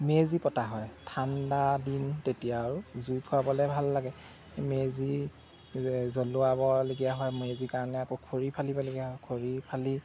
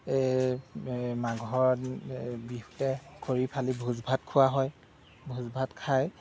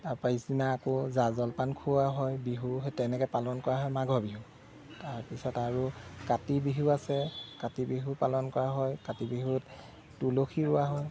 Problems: none marked